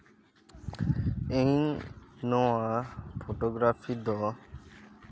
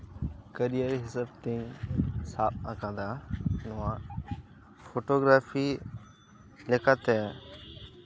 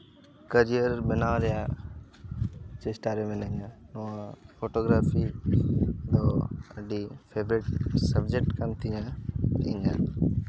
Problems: constant background noise, background conversations at intervals